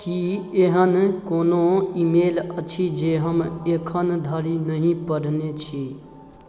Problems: none marked